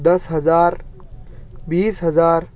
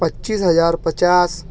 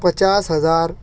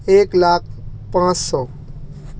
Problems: none marked